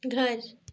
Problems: none marked